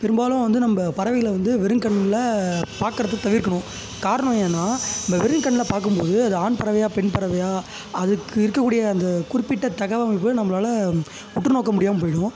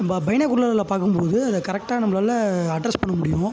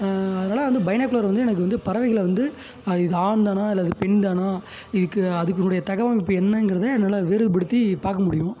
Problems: background sounds at intervals